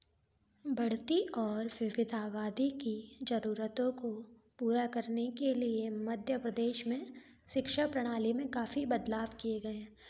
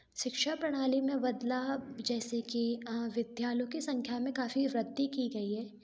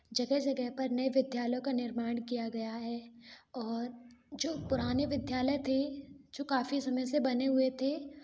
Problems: background sounds at intervals